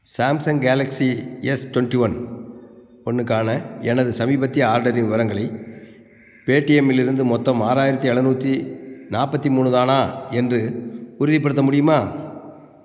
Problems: constant background noise